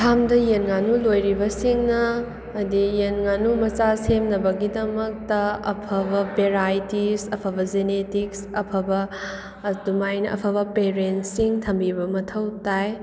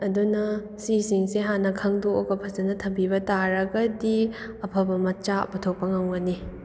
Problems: background sounds at intervals